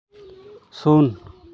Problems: background conversations at intervals